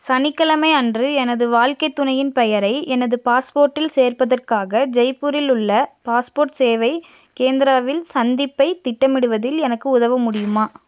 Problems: none marked